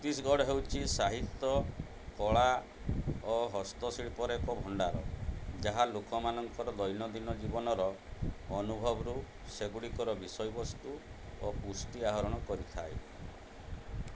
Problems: low volume